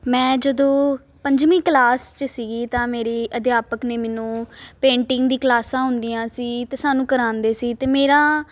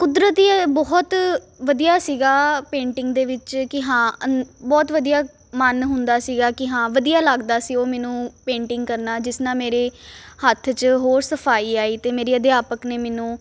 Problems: constant background noise